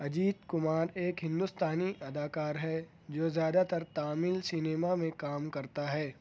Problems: none marked